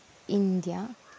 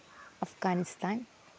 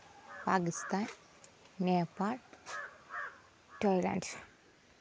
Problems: low volume